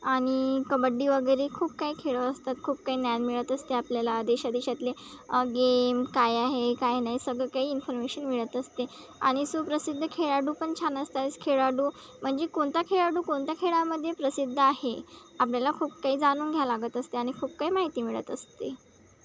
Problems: none marked